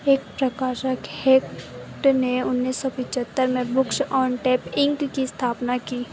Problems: constant background noise